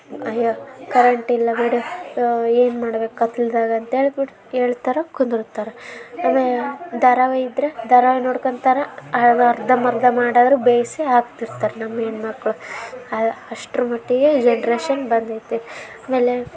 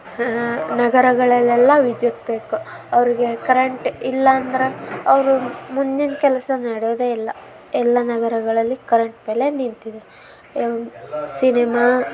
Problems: none marked